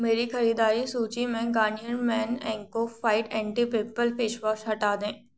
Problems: none marked